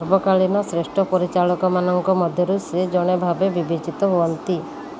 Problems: constant background noise